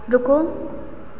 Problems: constant background noise, echo